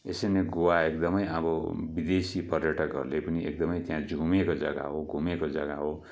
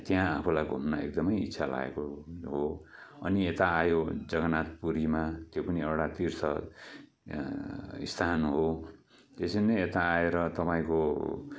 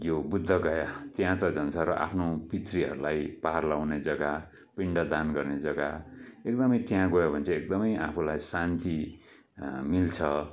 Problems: background sounds at intervals